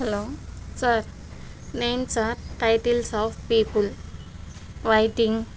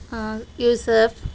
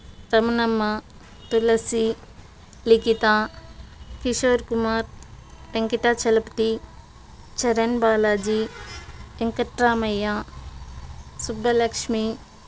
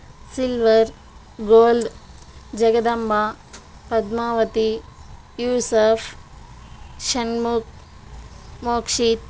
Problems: constant background noise